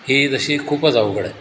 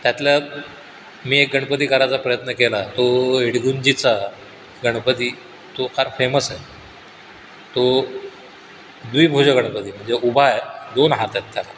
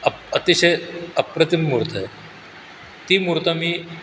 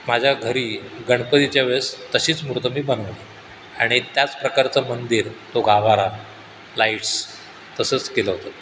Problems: none marked